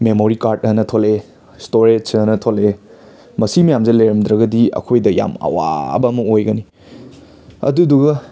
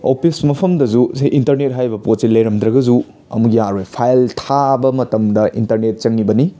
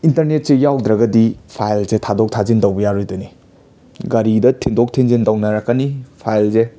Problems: constant background noise, background conversations at intervals